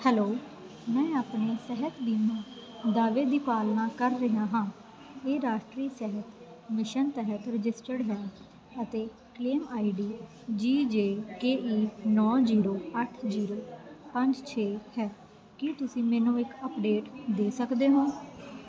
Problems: constant background noise